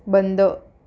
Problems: none marked